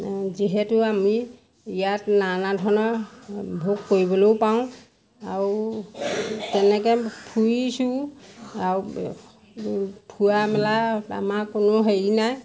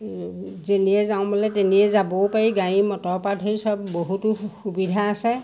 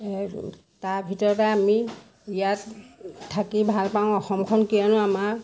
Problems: constant background noise